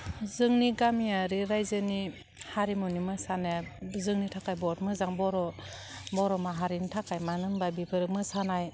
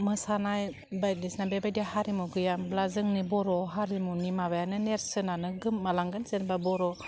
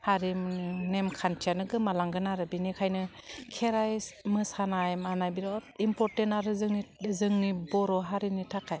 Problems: constant background noise